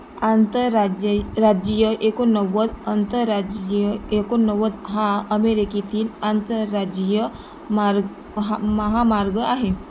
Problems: constant background noise